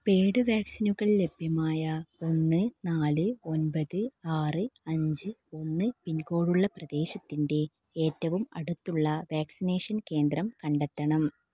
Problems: none marked